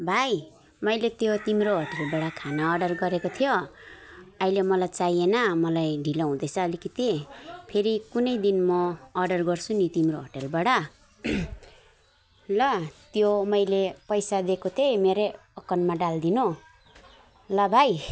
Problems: background conversations at intervals